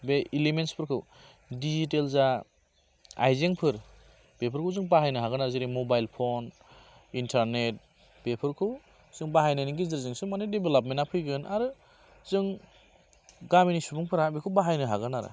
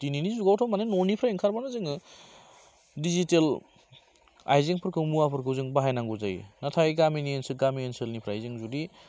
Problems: constant background noise